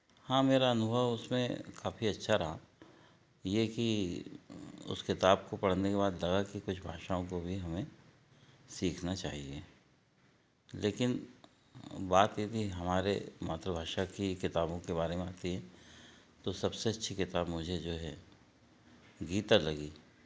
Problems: none marked